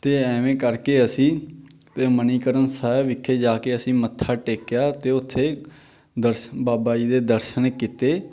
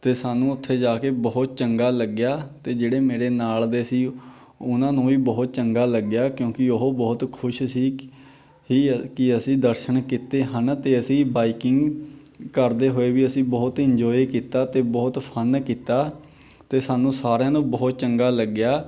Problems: none marked